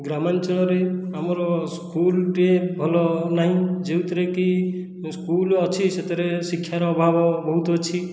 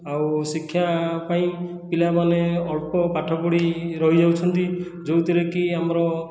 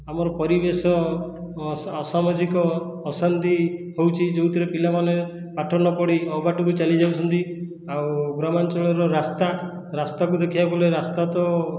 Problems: background sounds at intervals